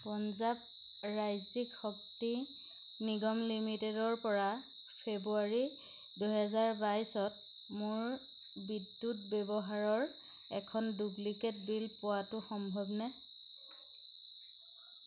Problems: constant background noise